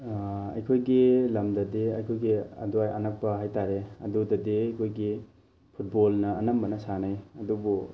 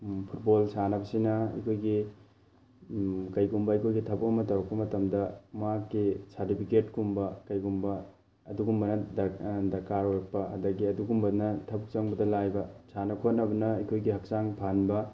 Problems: constant background noise